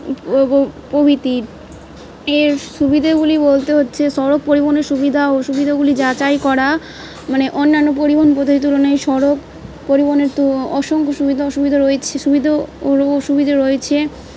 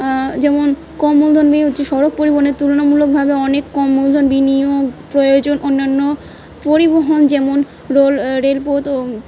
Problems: background sounds at intervals, background conversations at intervals